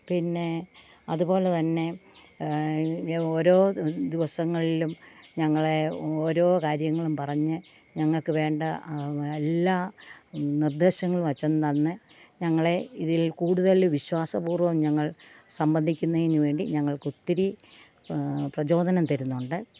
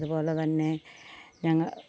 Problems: constant background noise